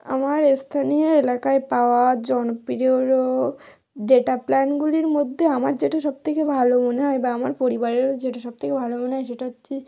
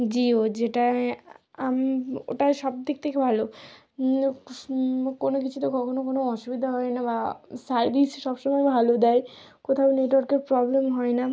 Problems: none marked